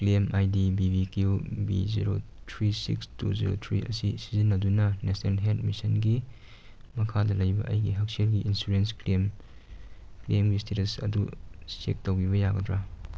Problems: none marked